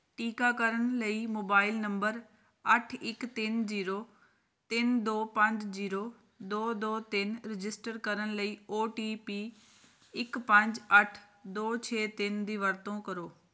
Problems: none marked